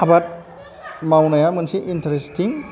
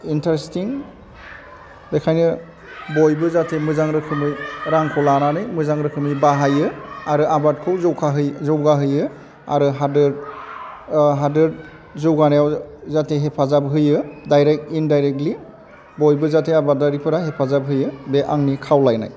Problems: none marked